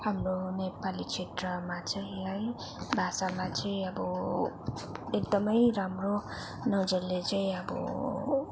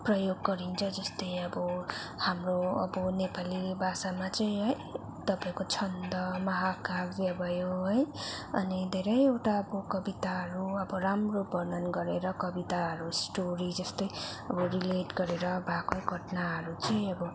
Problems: constant background noise